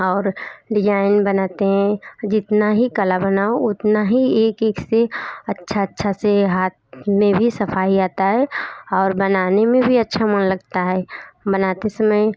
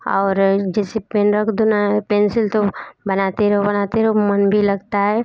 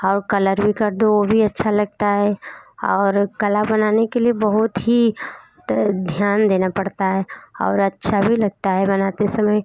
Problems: background sounds at intervals, background conversations at intervals